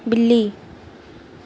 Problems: constant background noise